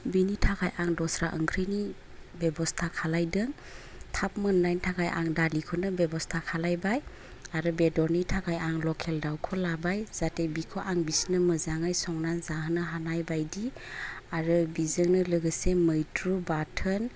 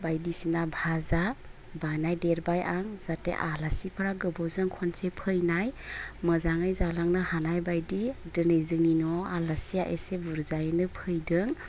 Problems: none marked